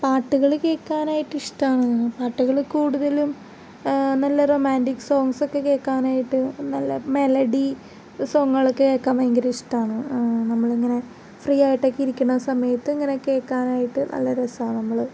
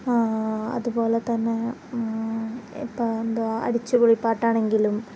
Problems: background sounds at intervals